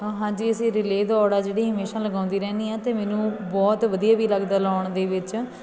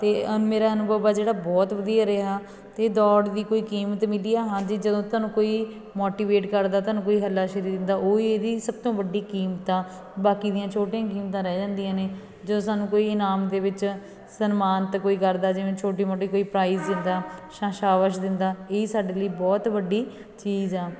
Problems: background sounds at intervals, continuous background conversations